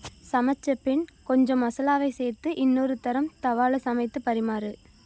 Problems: constant background noise